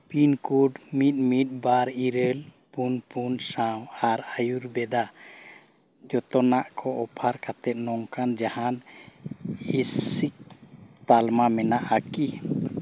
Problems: none marked